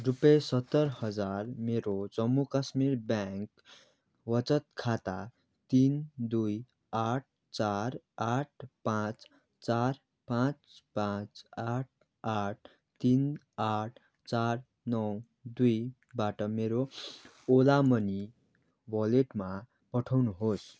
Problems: none marked